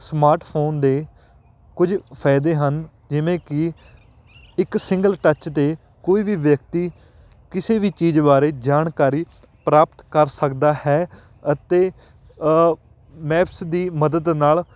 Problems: none marked